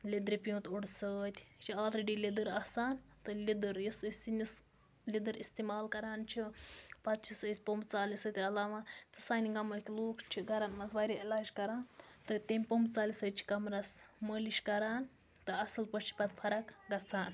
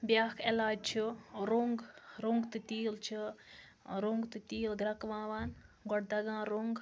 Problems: background conversations at intervals